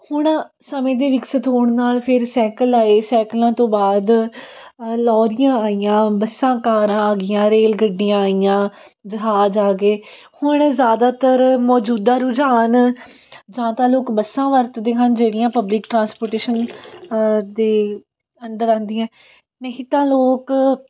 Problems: background sounds at intervals